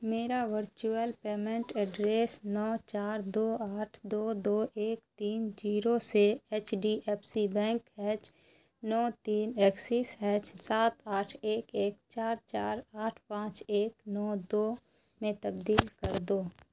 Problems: background sounds at intervals